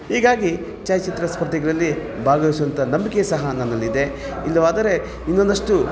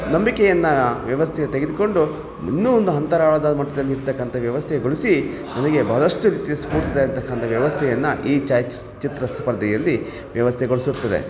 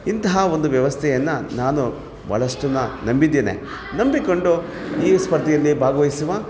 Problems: background sounds at intervals